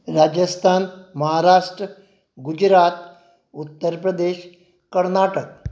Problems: none marked